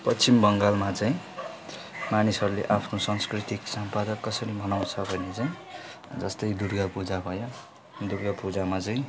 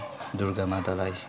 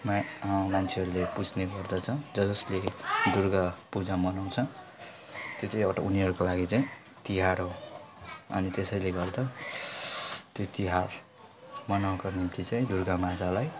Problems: none marked